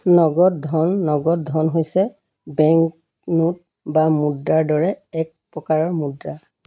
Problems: constant background noise